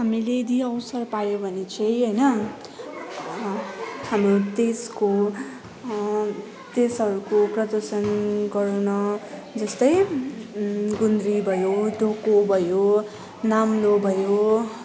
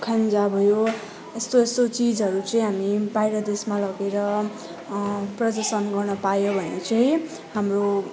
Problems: none marked